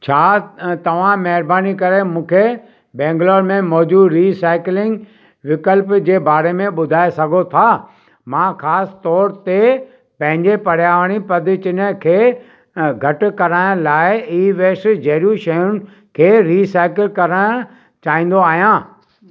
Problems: none marked